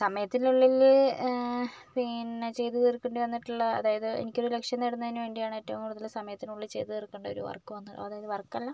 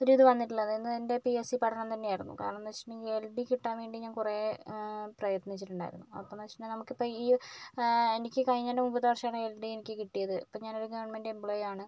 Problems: none marked